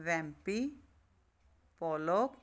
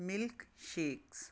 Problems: none marked